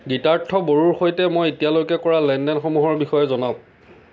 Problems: constant background noise